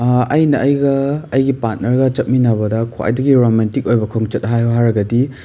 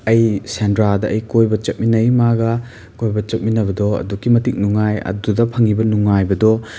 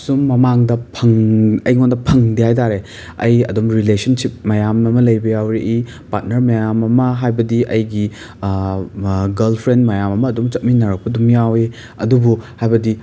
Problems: background sounds at intervals